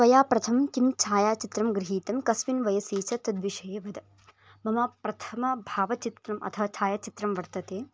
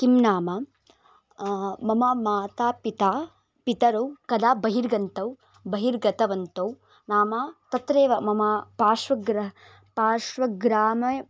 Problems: background sounds at intervals